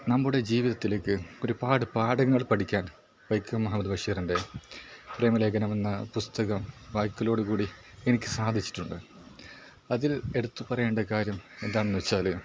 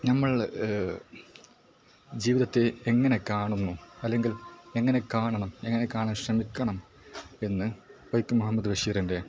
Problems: background sounds at intervals, low volume